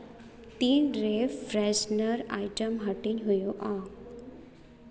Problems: echo